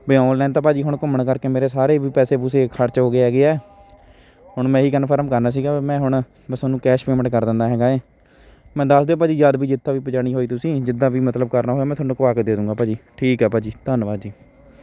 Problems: constant background noise, continuous background conversations